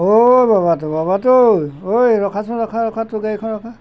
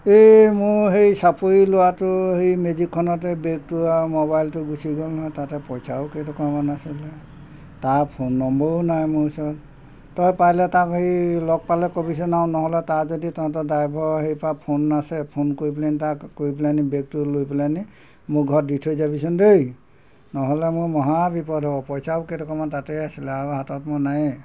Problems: background sounds at intervals